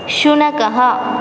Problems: constant background noise